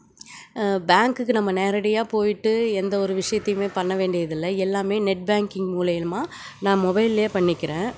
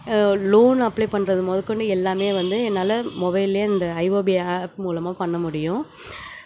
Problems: background sounds at intervals